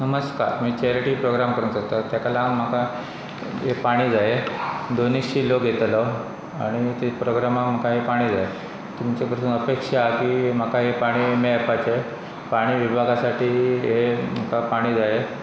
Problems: constant background noise